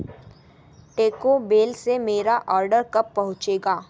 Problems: background sounds at intervals